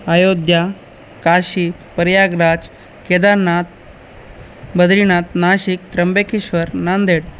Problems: constant background noise